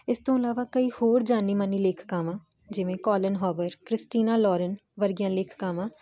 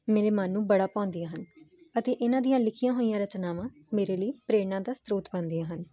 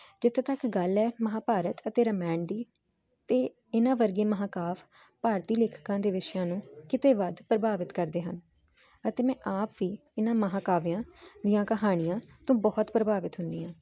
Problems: none marked